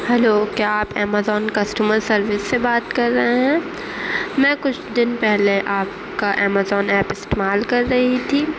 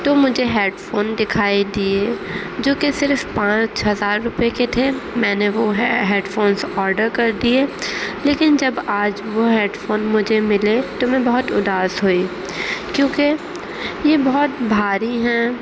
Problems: constant background noise